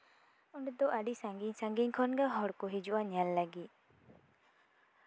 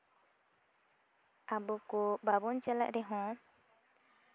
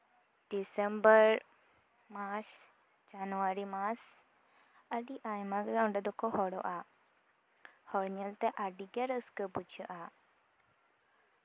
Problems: none marked